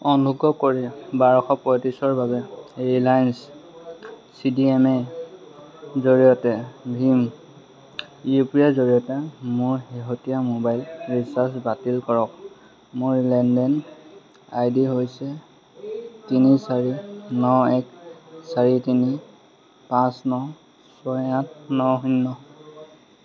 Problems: constant background noise, background conversations at intervals